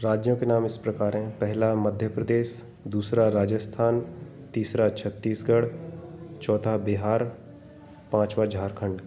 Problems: background sounds at intervals